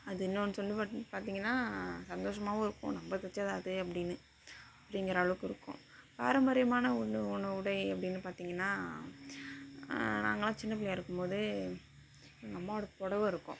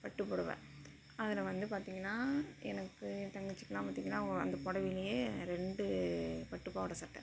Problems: constant background noise, low volume